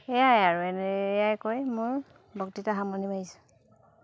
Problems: constant background noise, background conversations at intervals